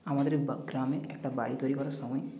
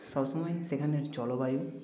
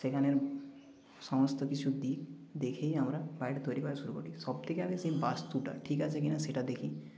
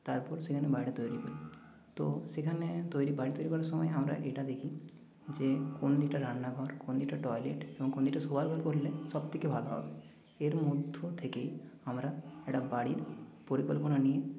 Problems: none marked